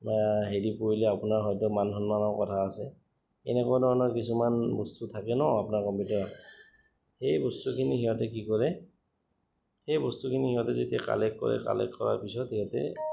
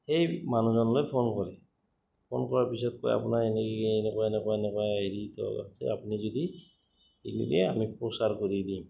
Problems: background sounds at intervals